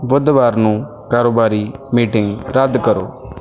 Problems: background conversations at intervals